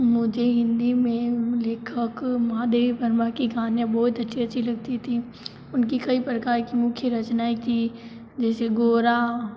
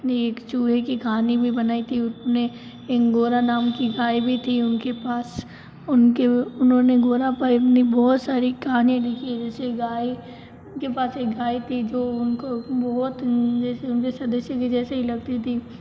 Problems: low volume